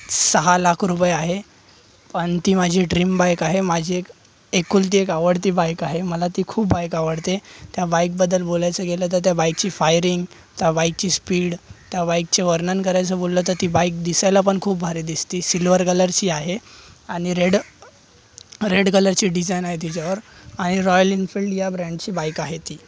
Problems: none marked